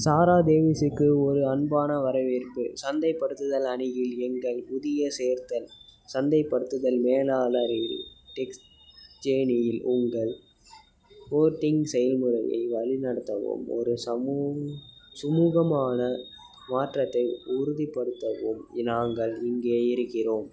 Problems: background sounds at intervals, background conversations at intervals